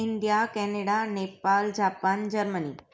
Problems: none marked